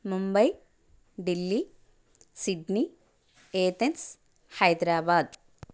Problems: none marked